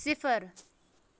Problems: background sounds at intervals